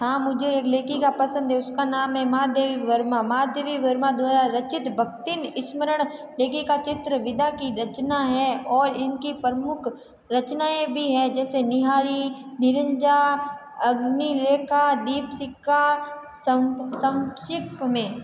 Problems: background sounds at intervals